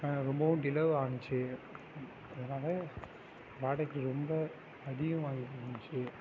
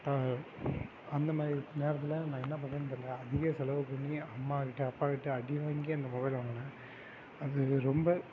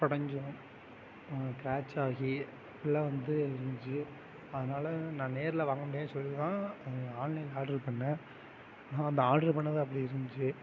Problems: constant background noise